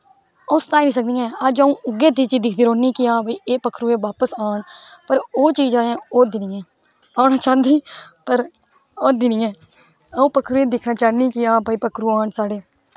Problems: background sounds at intervals